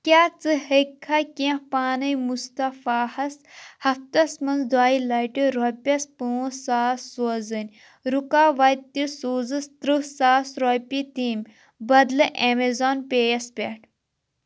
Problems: constant background noise